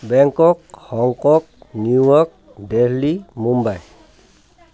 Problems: background conversations at intervals